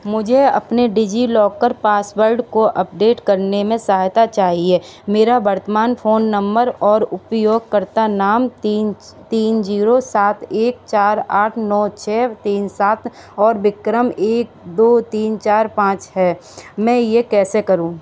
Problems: constant background noise